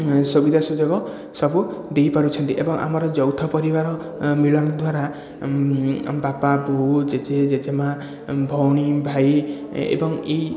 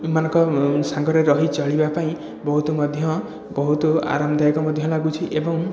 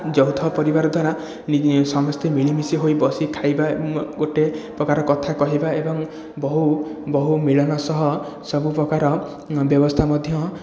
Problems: none marked